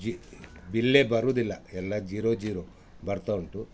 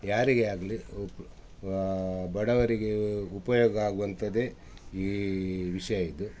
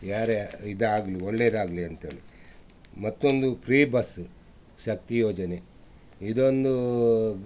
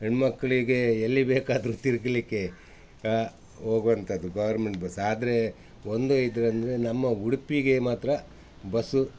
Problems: background sounds at intervals